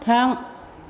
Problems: none marked